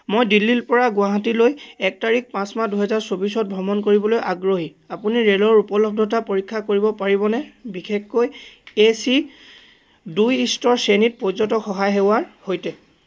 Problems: none marked